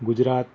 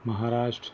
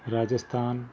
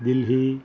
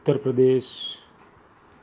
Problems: background sounds at intervals